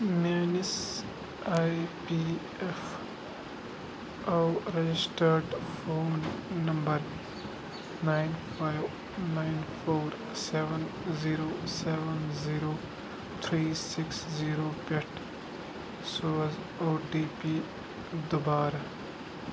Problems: constant background noise